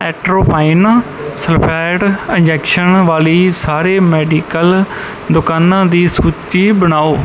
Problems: background sounds at intervals